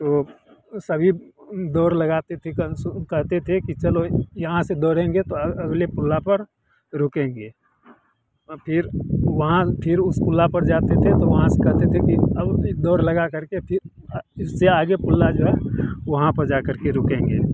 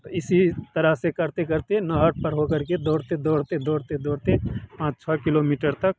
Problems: constant background noise